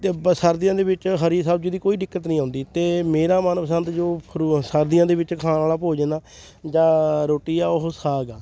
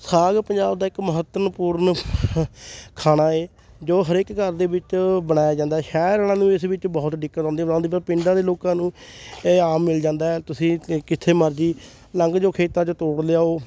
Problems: background sounds at intervals, background conversations at intervals